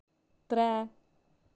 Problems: low volume